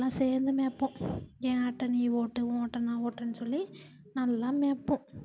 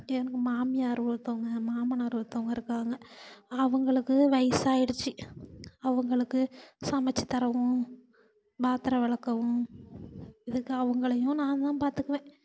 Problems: constant background noise